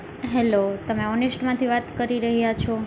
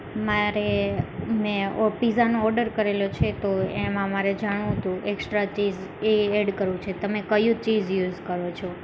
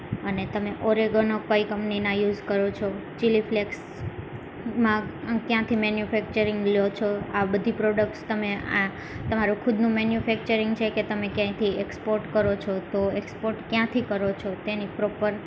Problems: constant background noise